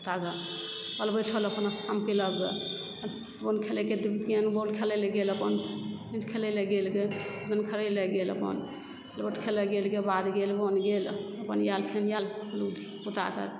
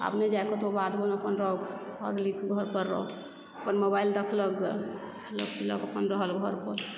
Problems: constant background noise